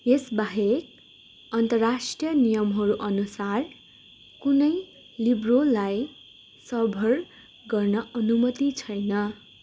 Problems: constant background noise